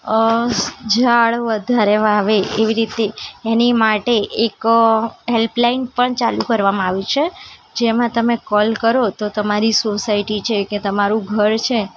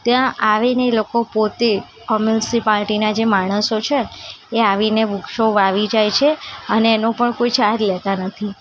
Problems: constant background noise, continuous background conversations